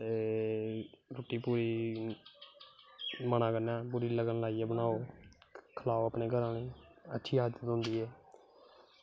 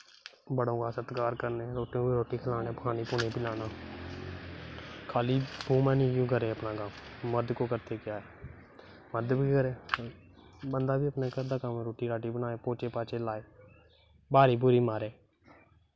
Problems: constant background noise